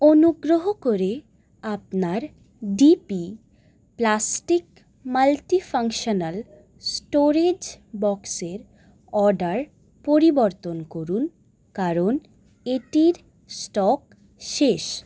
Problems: none marked